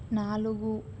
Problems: none marked